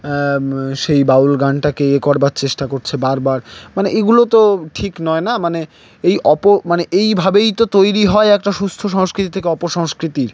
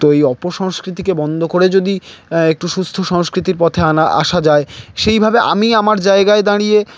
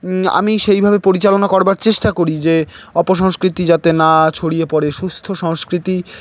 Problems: none marked